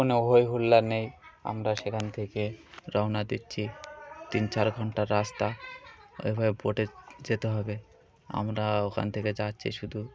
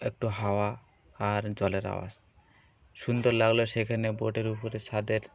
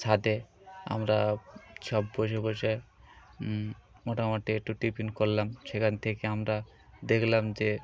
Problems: constant background noise, continuous background conversations